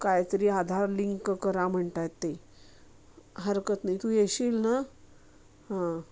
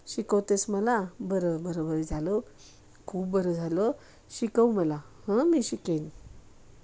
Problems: constant background noise